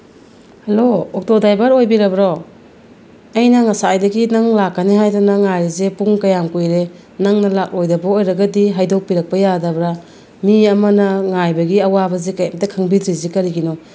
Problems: low volume